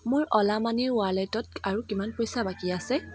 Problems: background sounds at intervals